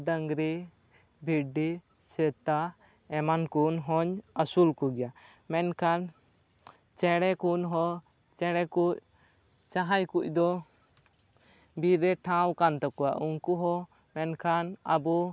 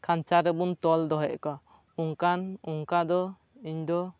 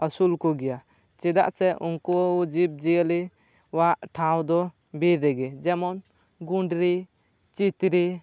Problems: none marked